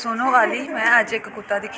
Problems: constant background noise